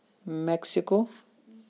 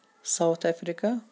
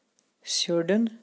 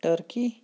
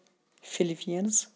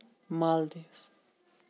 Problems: none marked